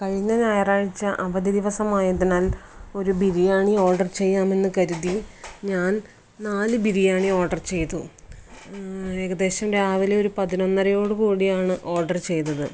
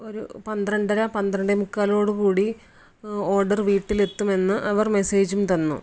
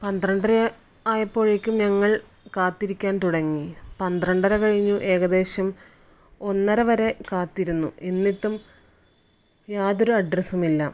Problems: none marked